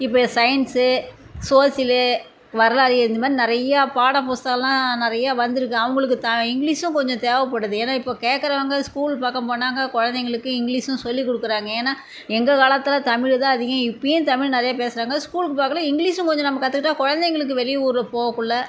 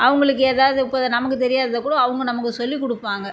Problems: none marked